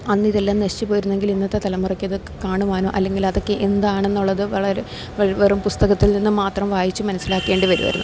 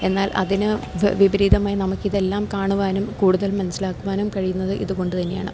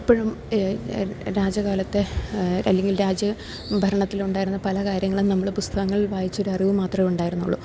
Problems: constant background noise, low volume